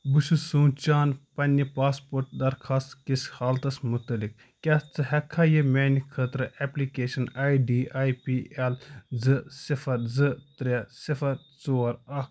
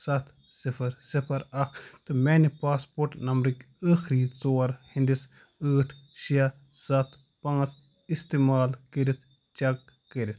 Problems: none marked